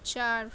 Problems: none marked